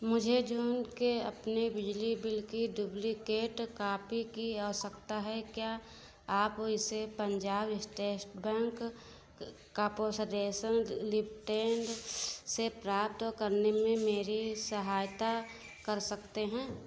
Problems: none marked